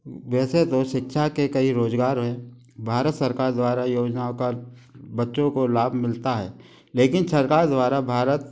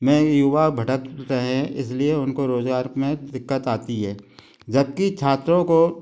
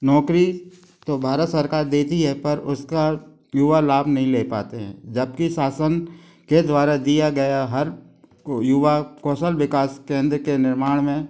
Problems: constant background noise